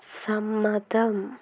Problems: none marked